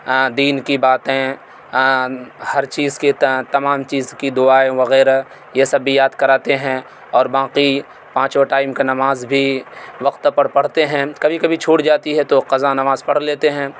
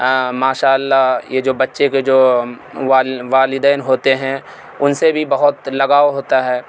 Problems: constant background noise